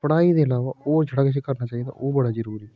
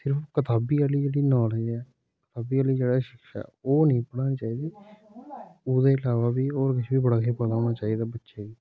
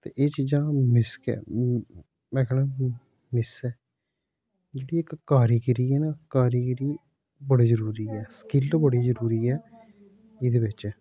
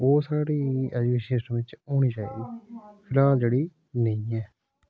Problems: background sounds at intervals